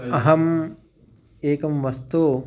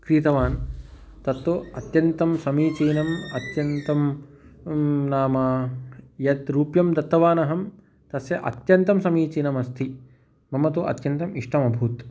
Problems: background sounds at intervals